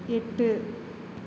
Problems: constant background noise